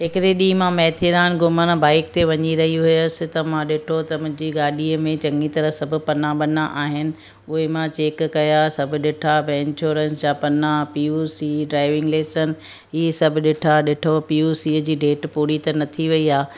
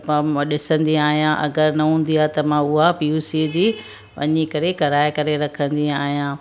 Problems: none marked